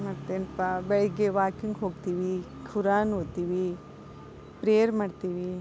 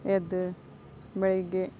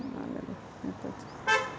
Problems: background sounds at intervals, background conversations at intervals